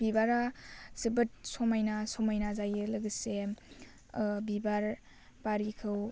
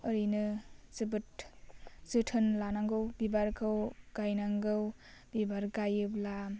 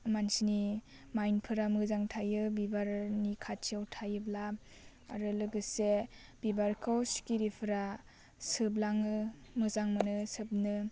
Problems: none marked